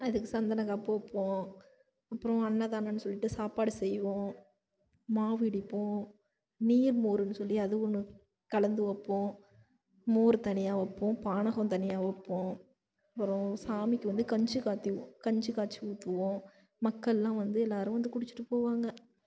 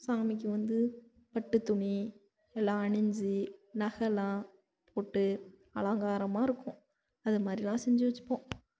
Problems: constant background noise, low volume